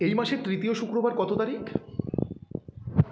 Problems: background sounds at intervals